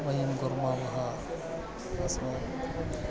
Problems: background sounds at intervals